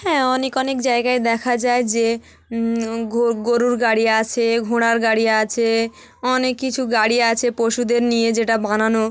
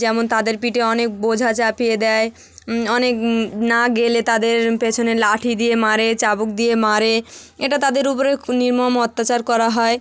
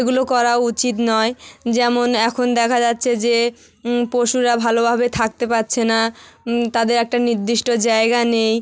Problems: none marked